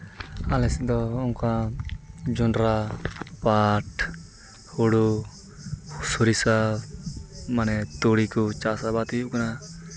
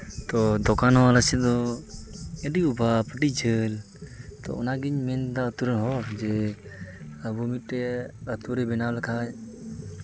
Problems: none marked